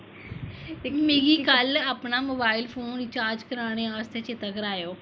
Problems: constant background noise